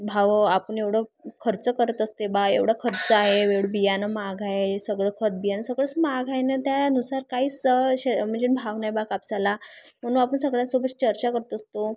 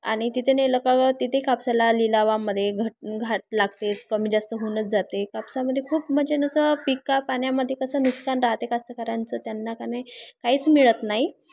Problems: none marked